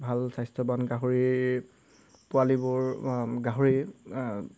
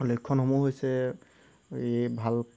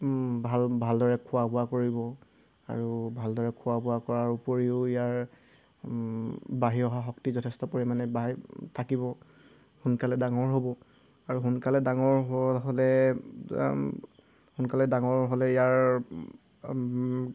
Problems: background sounds at intervals